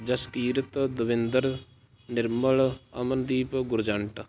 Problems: constant background noise